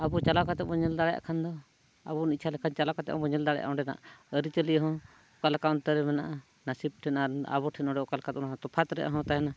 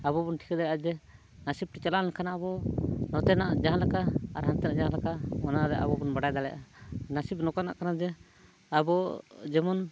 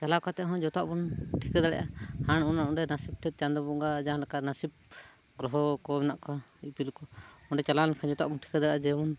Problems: none marked